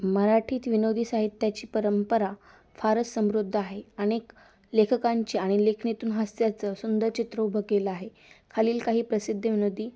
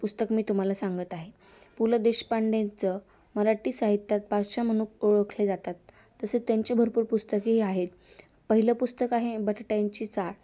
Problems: constant background noise